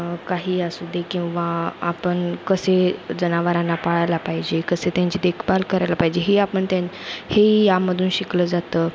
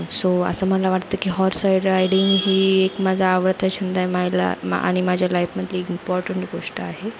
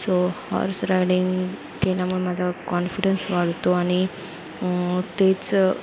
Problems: constant background noise, background conversations at intervals